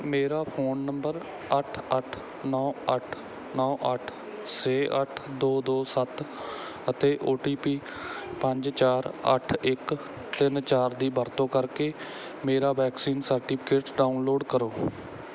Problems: background sounds at intervals